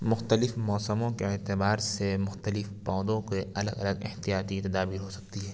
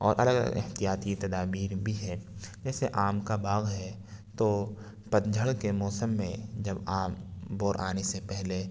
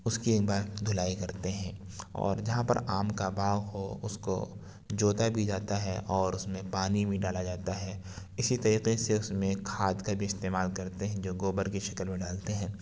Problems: none marked